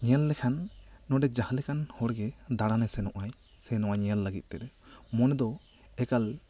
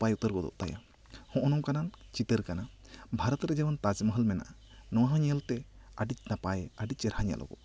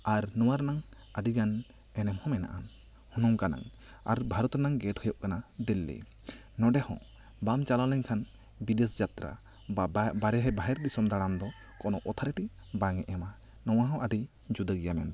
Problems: none marked